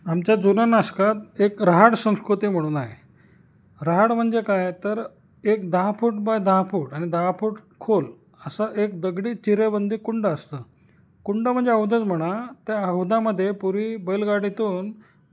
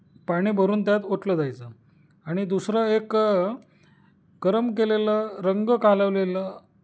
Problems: none marked